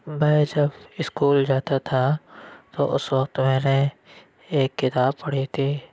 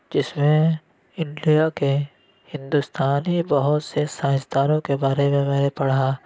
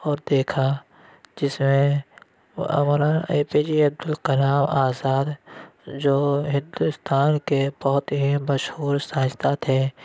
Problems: none marked